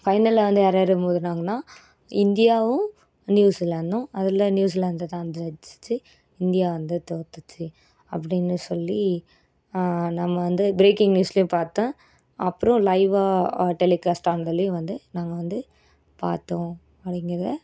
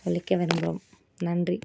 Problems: none marked